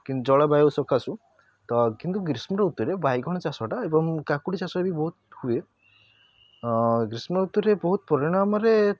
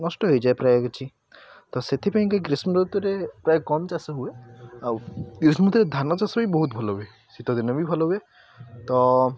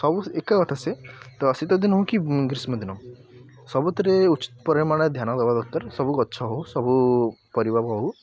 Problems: constant background noise